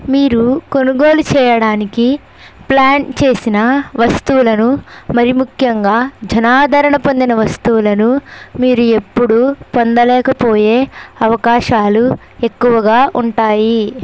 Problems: constant background noise